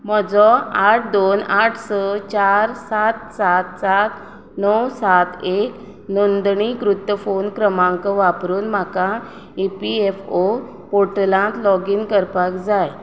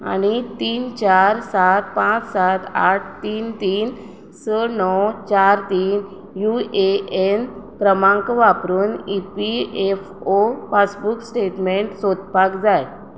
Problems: none marked